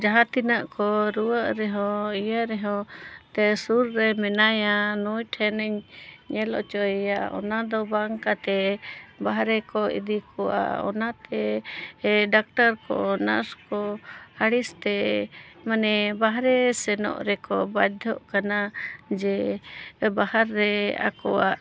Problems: none marked